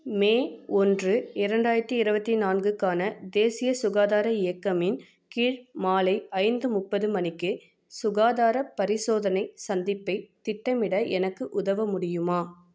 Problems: none marked